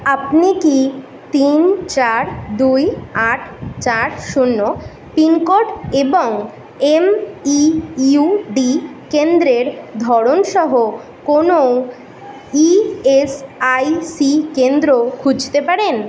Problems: background conversations at intervals